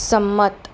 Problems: constant background noise